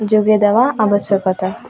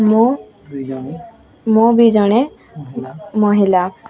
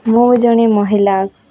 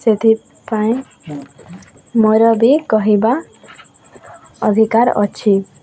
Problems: constant background noise, continuous background conversations